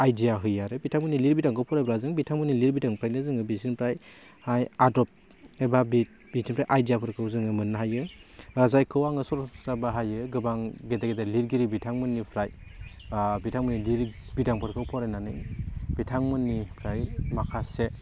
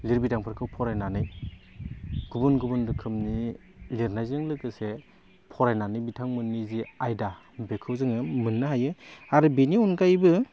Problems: none marked